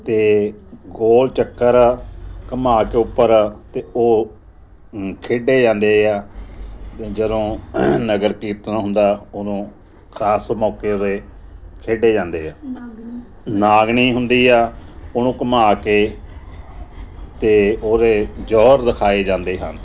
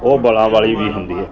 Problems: background sounds at intervals